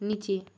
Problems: none marked